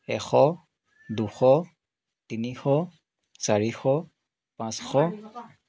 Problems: continuous background conversations